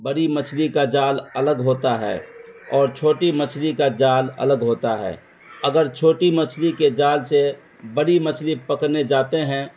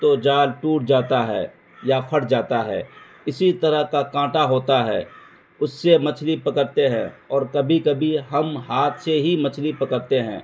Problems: constant background noise